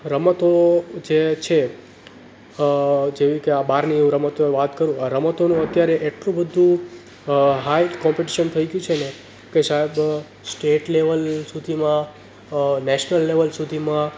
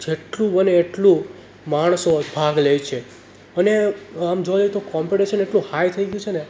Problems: none marked